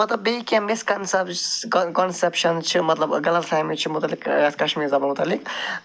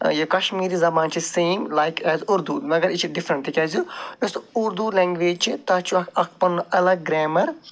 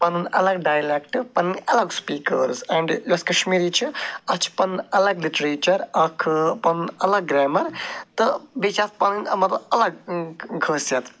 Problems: none marked